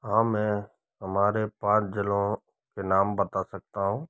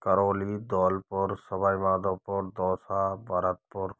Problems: none marked